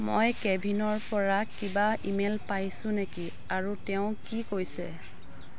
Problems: none marked